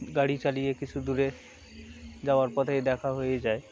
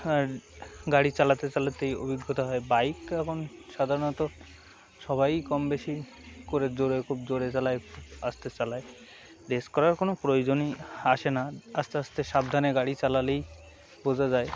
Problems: none marked